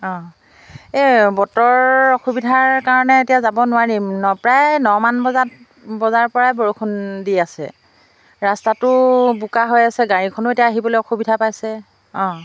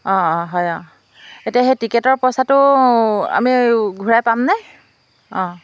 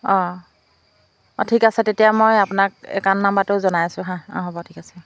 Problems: background sounds at intervals